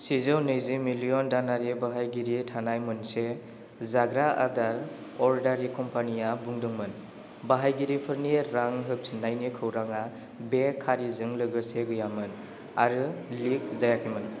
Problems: none marked